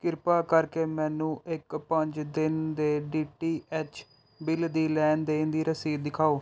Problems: none marked